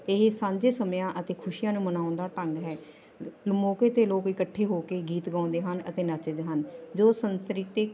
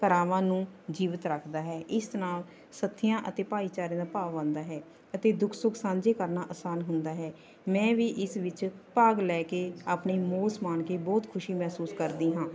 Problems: constant background noise, continuous background conversations